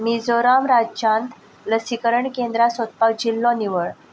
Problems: constant background noise